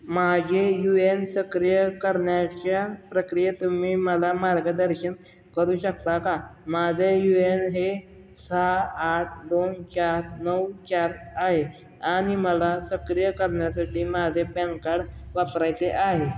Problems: background sounds at intervals